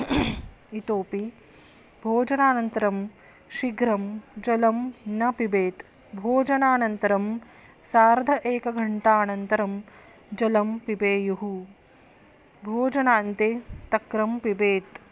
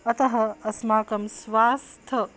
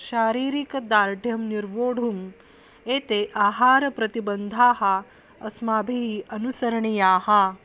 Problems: constant background noise